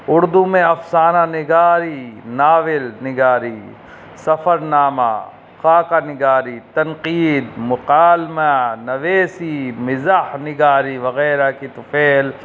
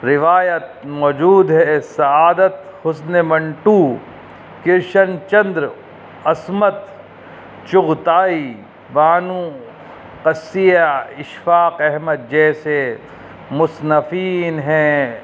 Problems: constant background noise